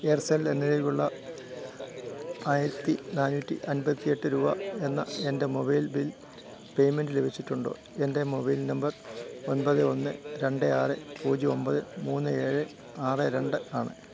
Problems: constant background noise, low volume